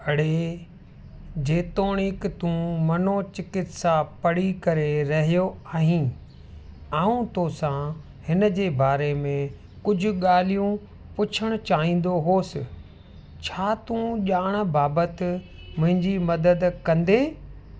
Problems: constant background noise